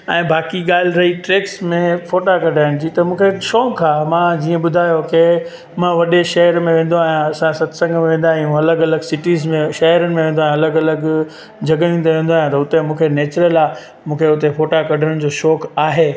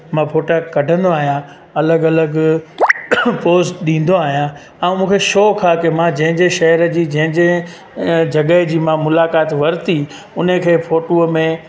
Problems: constant background noise